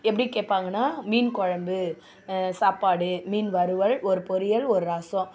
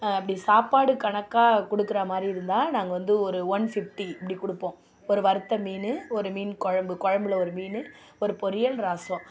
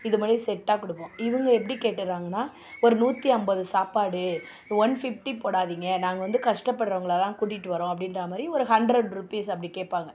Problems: background sounds at intervals